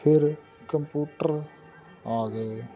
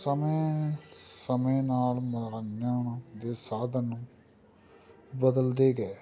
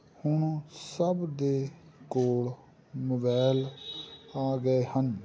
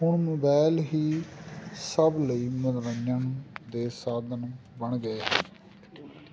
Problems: constant background noise